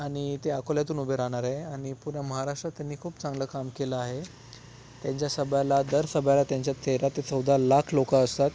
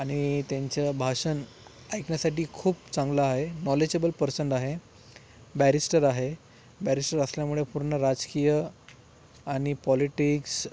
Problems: background sounds at intervals